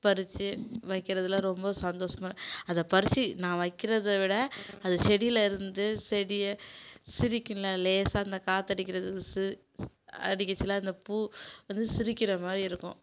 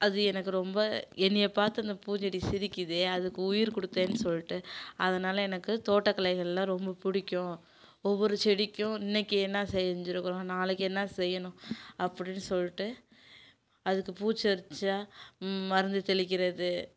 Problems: none marked